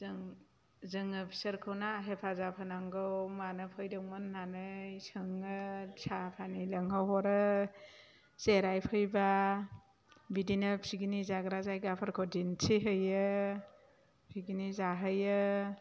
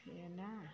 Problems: low volume